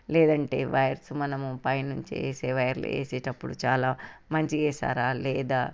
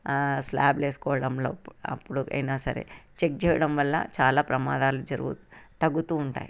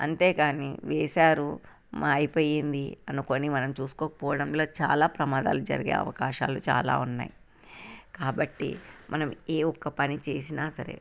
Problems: constant background noise